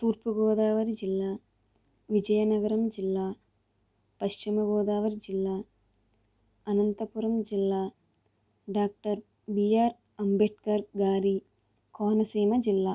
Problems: low volume